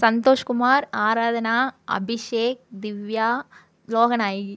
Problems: none marked